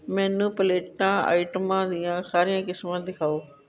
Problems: background conversations at intervals